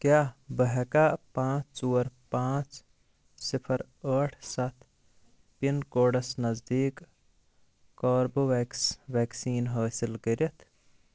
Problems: constant background noise